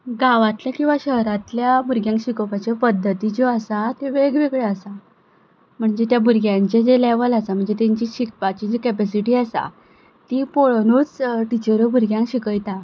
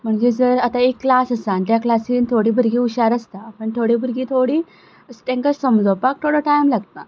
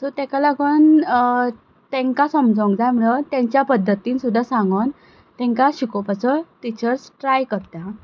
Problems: constant background noise